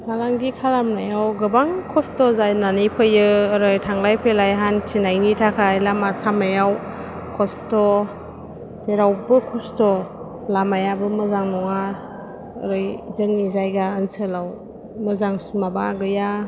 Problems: low volume